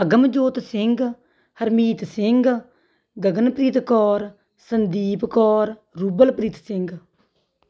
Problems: none marked